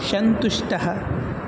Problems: constant background noise